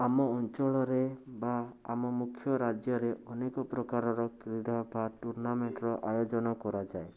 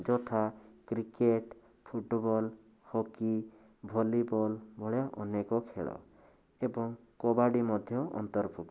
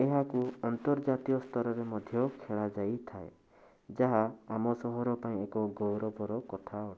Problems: constant background noise